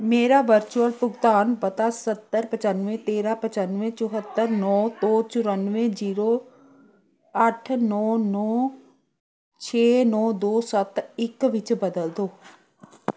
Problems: continuous background conversations